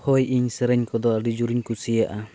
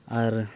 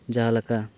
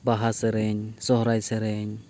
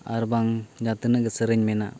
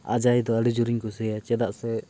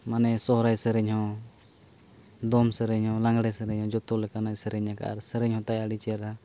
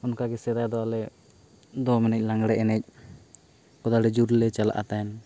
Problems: background sounds at intervals